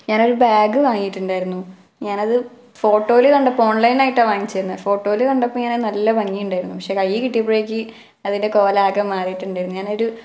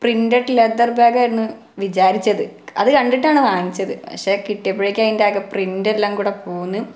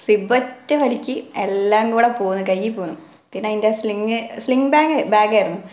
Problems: background sounds at intervals